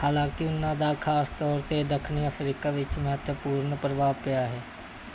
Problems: constant background noise